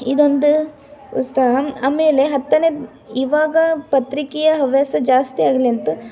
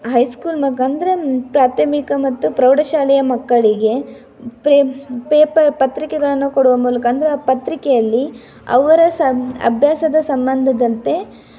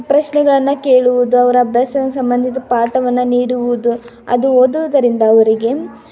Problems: continuous background conversations